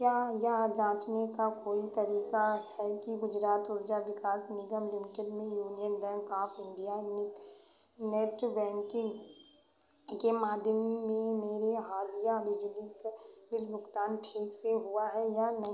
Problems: constant background noise, echo